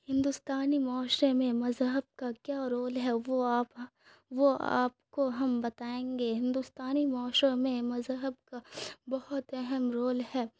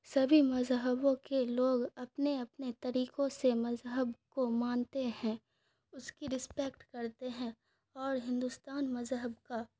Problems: none marked